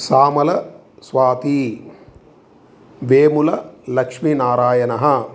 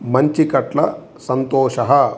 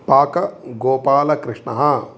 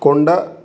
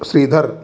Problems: constant background noise